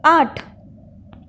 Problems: none marked